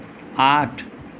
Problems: constant background noise